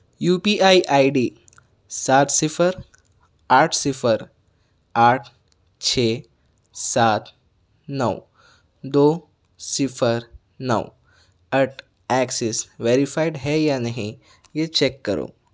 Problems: none marked